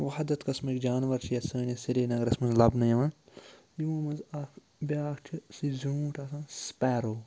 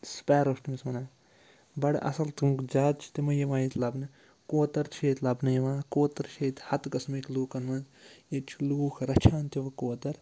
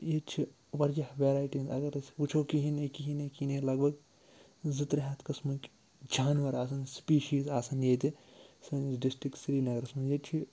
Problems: background sounds at intervals